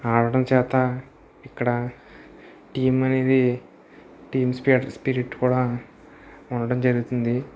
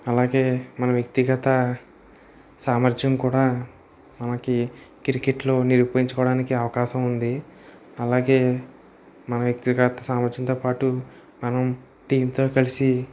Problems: none marked